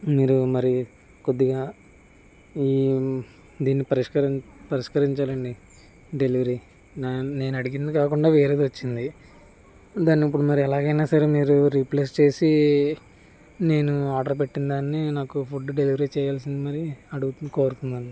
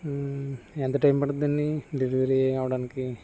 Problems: constant background noise, background conversations at intervals